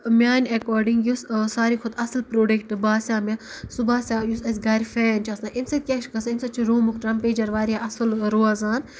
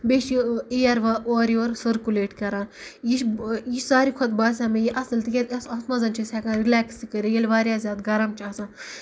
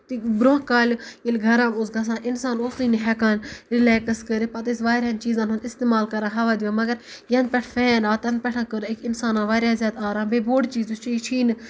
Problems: none marked